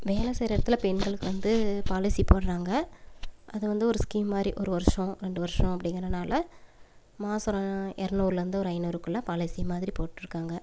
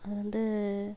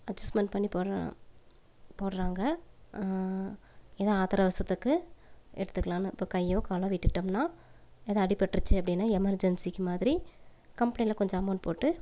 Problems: background sounds at intervals